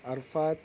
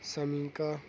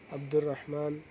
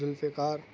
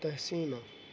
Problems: background sounds at intervals